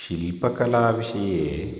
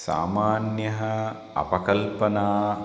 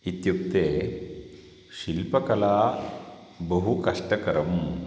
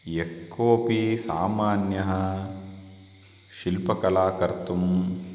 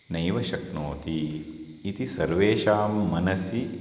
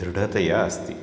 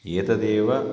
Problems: constant background noise